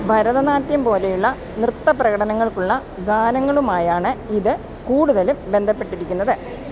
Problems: constant background noise